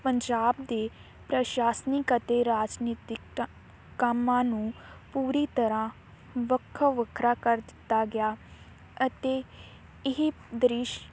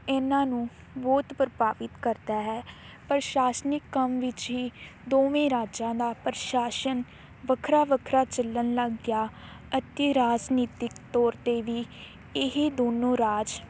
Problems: constant background noise